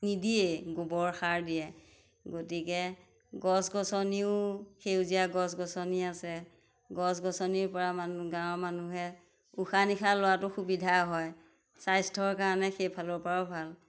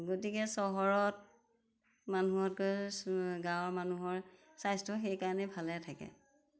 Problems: none marked